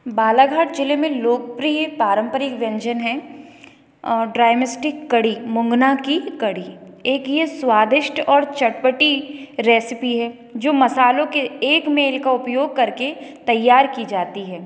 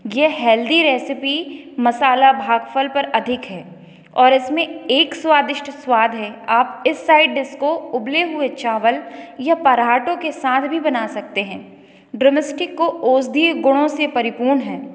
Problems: echo